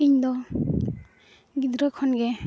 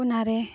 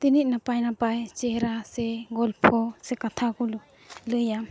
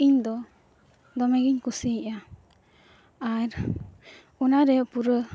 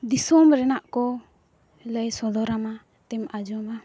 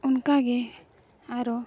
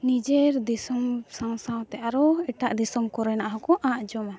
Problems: none marked